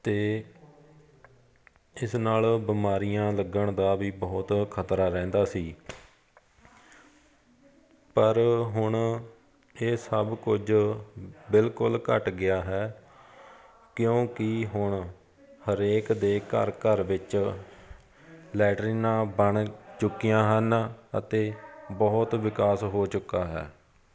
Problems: continuous background conversations